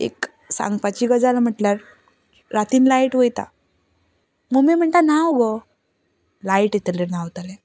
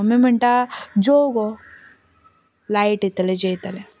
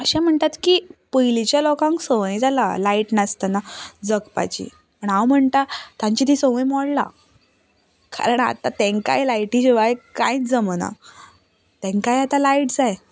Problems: none marked